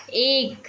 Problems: background sounds at intervals